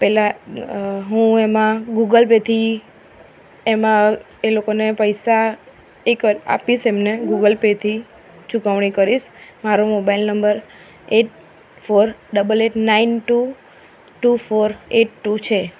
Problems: none marked